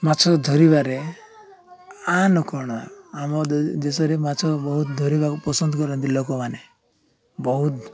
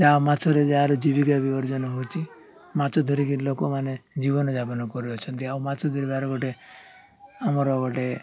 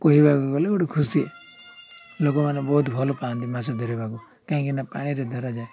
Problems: none marked